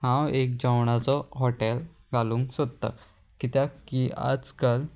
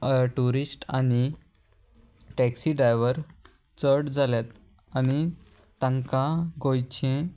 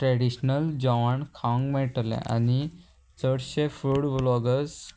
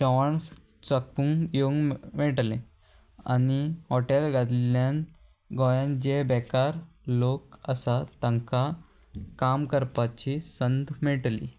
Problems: constant background noise